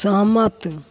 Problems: none marked